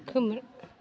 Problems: constant background noise